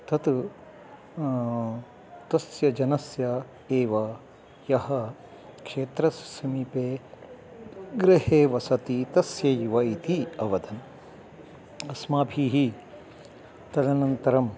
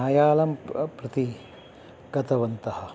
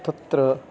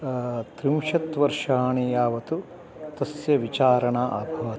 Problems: none marked